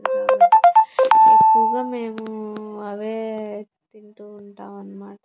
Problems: none marked